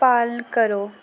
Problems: constant background noise